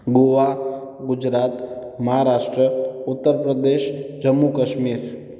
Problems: echo